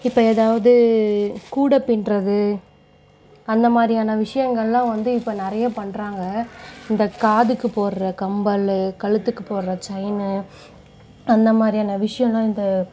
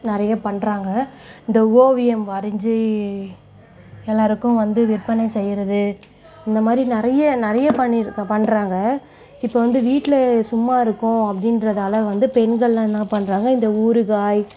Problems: background conversations at intervals